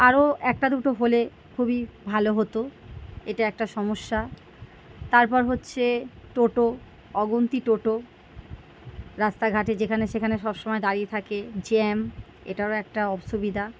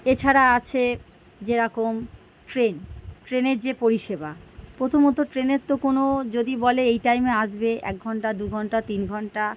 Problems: background sounds at intervals